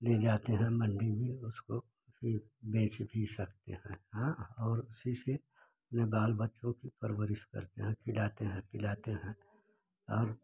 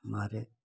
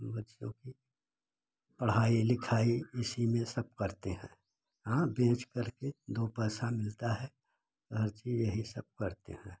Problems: constant background noise